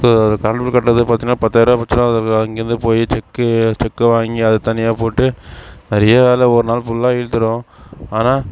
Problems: constant background noise